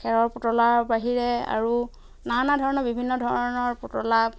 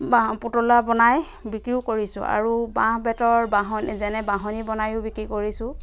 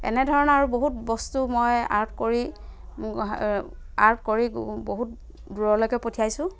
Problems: background sounds at intervals